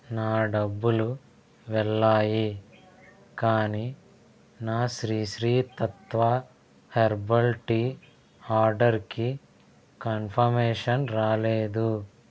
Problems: none marked